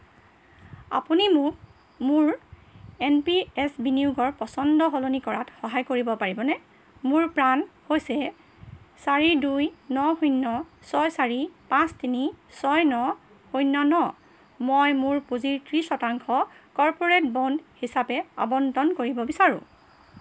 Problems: background sounds at intervals